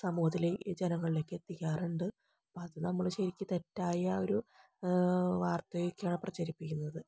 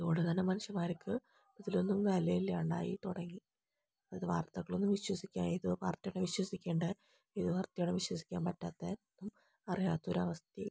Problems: low volume